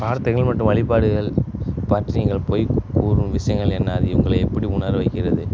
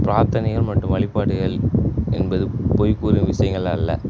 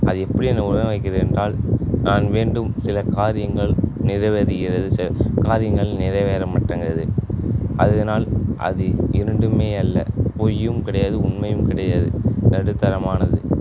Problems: constant background noise